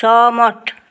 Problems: none marked